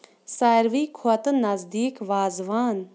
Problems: none marked